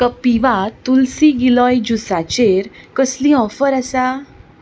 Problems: background sounds at intervals